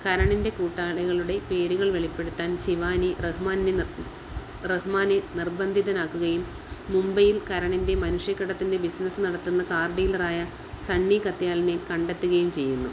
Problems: constant background noise, low volume